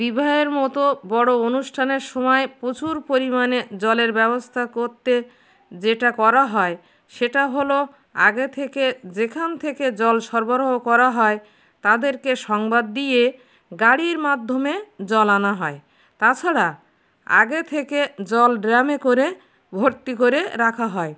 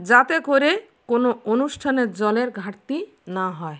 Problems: constant background noise